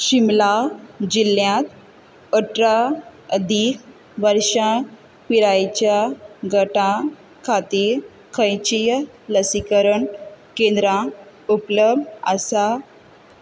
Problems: constant background noise